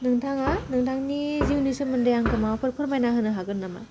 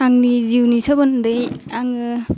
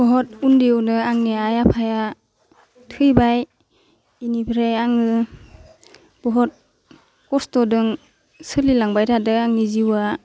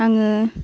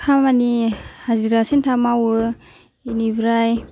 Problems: none marked